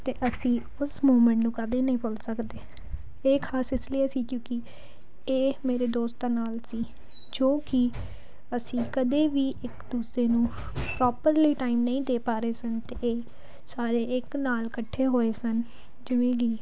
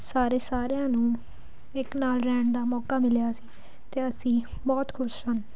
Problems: background sounds at intervals